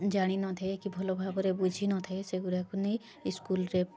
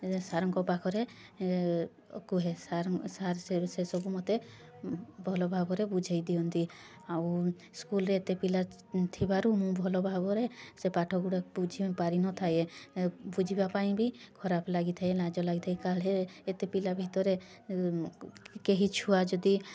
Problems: constant background noise, continuous background conversations